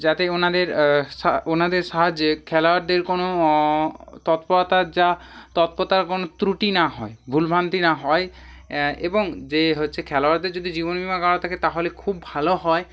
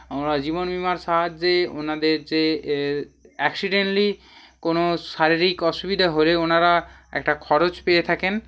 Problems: constant background noise